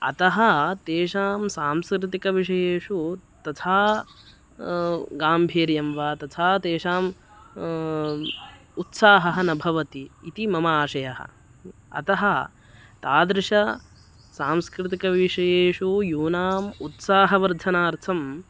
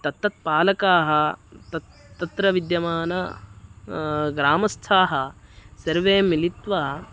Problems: constant background noise